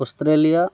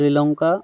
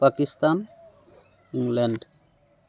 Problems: constant background noise